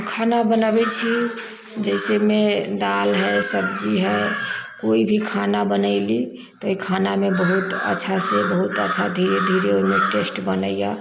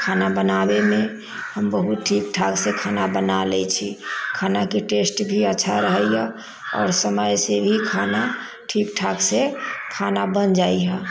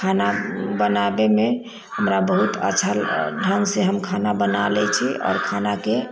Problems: background sounds at intervals